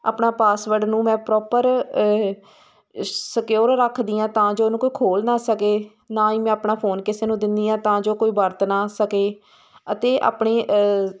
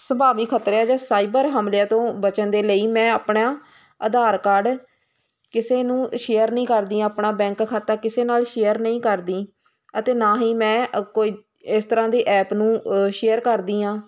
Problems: constant background noise